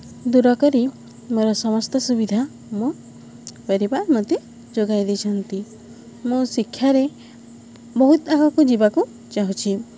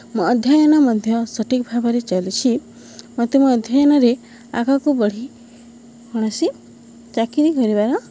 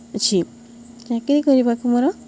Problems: none marked